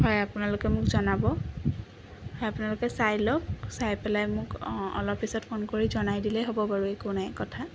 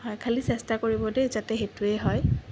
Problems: constant background noise